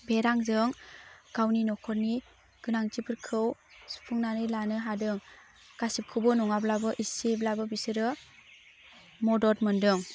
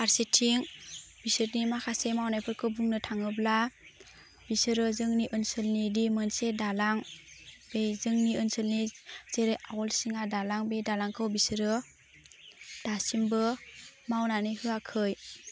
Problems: constant background noise